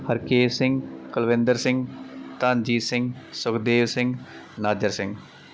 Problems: constant background noise